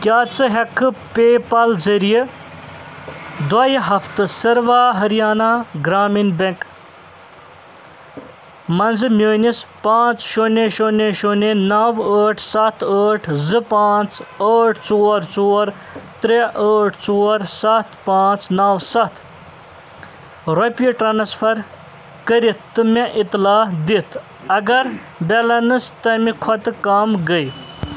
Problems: constant background noise